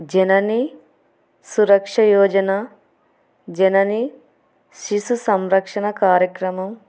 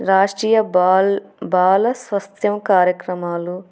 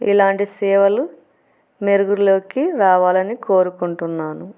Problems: none marked